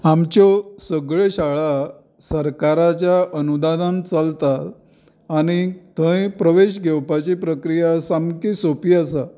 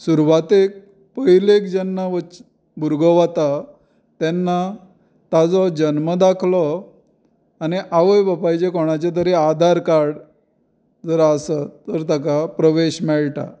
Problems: none marked